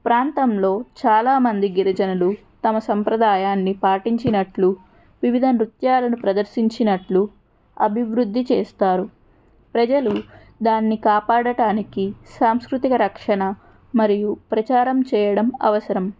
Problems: background sounds at intervals